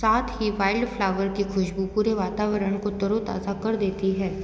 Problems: none marked